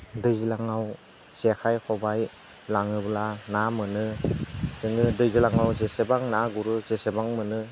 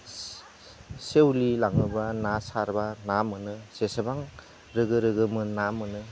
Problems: constant background noise